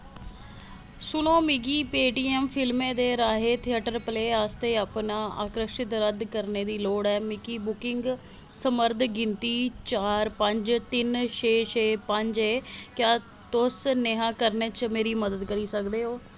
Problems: background sounds at intervals